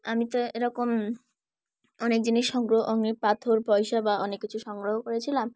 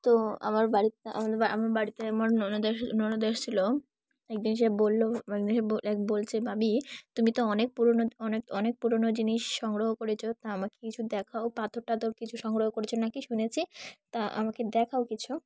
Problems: background sounds at intervals